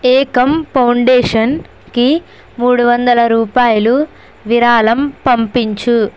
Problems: constant background noise